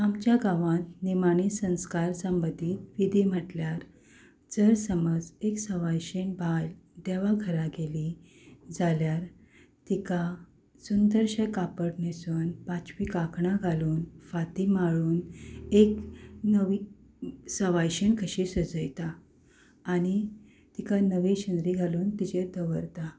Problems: none marked